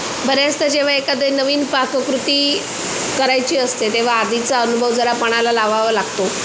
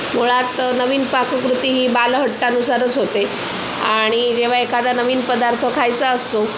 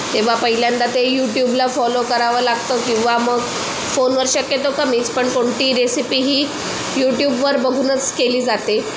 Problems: constant background noise